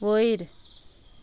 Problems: background sounds at intervals